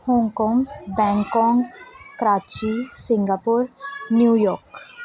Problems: continuous background conversations